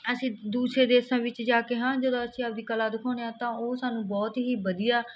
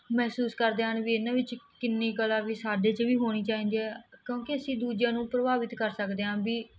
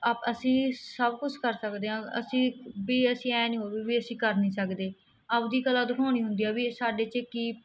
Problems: none marked